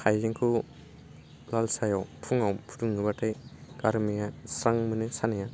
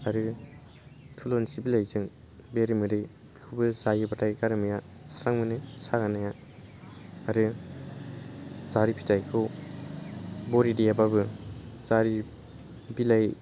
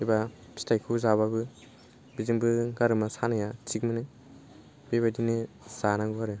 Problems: none marked